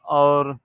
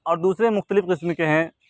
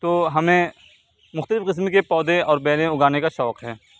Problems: constant background noise